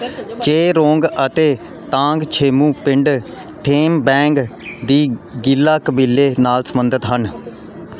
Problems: constant background noise